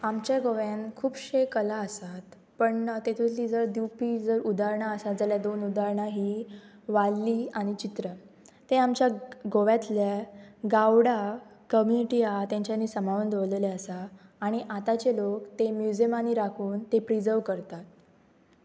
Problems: background sounds at intervals